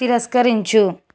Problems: constant background noise